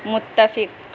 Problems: constant background noise